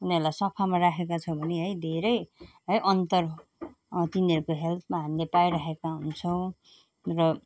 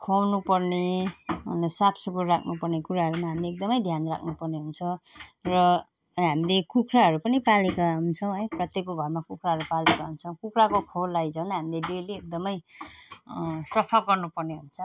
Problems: none marked